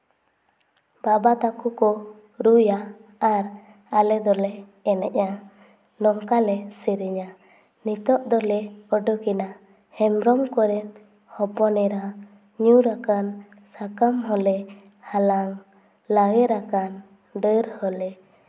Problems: none marked